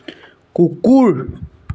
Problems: none marked